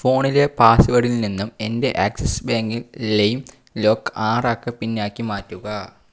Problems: none marked